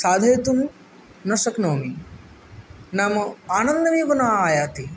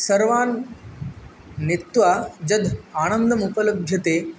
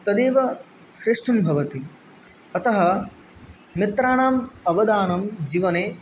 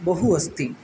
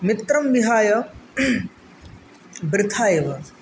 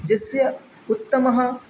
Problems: none marked